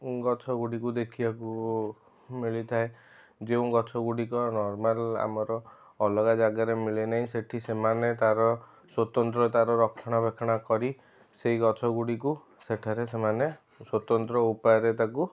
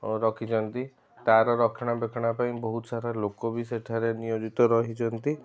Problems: background sounds at intervals